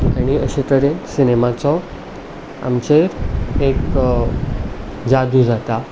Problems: none marked